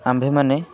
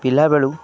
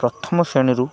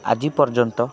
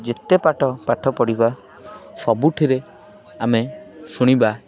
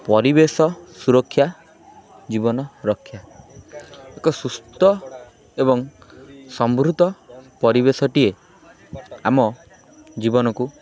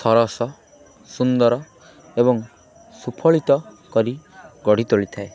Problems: constant background noise, continuous background conversations